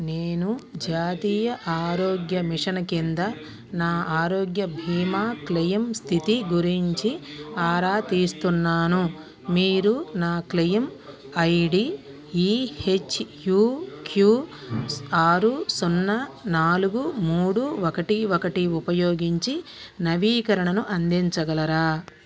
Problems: continuous background conversations